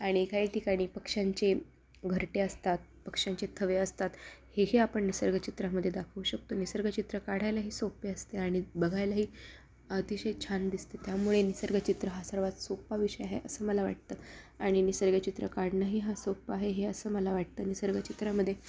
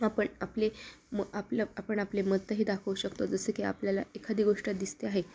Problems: constant background noise, continuous background conversations